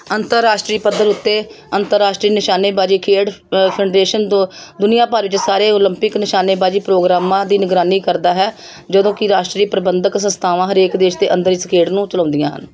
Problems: none marked